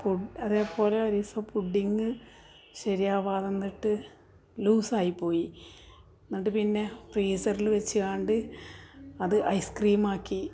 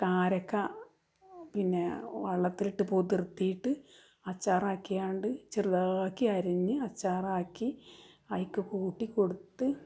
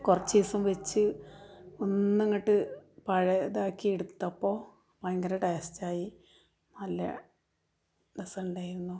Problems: background conversations at intervals